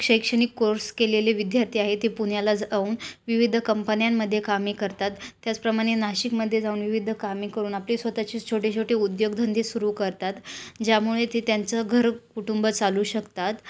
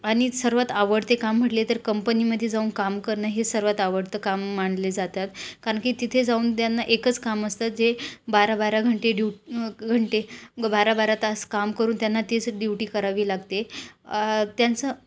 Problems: background sounds at intervals